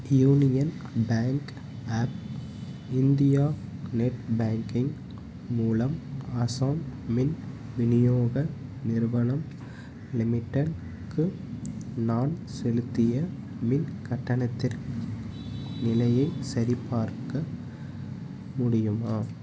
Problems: none marked